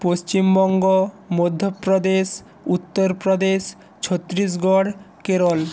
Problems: background sounds at intervals